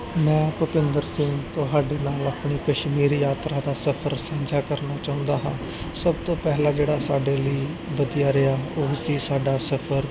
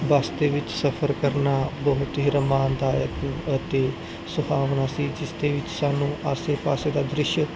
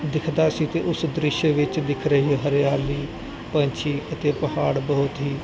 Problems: background sounds at intervals, background conversations at intervals